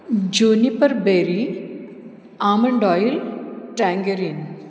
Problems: background sounds at intervals, low volume